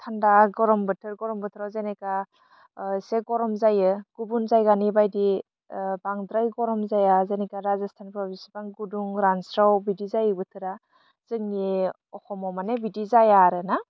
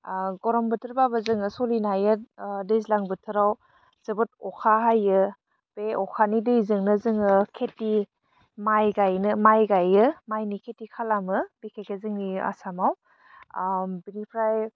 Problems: low volume